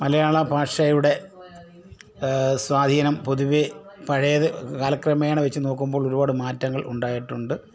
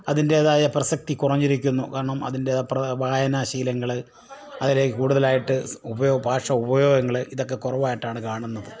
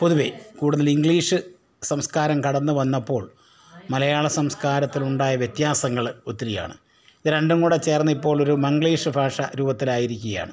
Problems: low volume